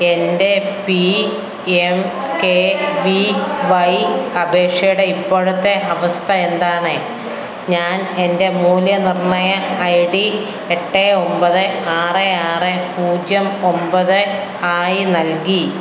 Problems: none marked